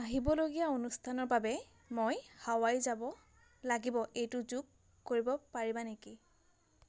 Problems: constant background noise